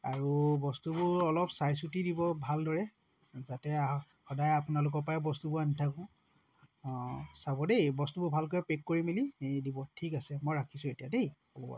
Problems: none marked